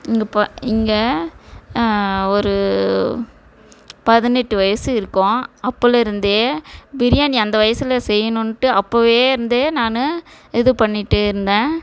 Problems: background sounds at intervals